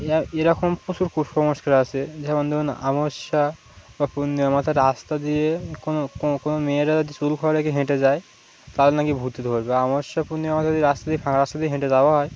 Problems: none marked